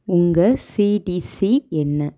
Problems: none marked